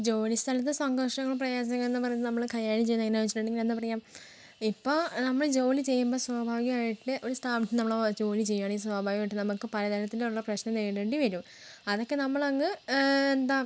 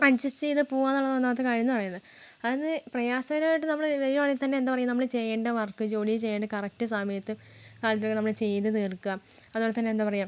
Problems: none marked